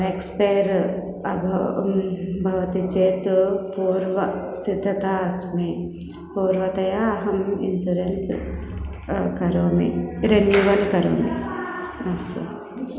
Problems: background sounds at intervals